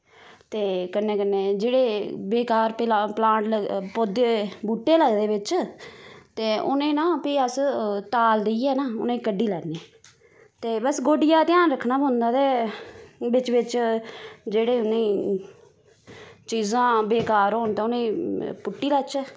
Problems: constant background noise